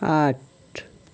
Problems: none marked